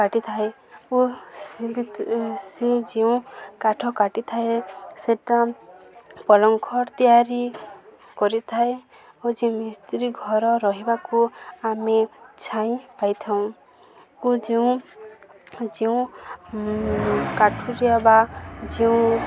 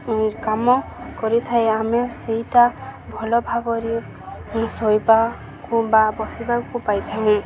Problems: constant background noise, continuous background conversations